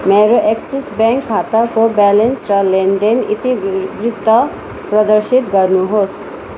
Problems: constant background noise